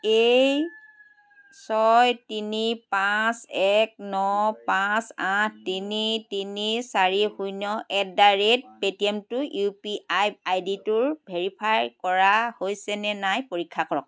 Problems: none marked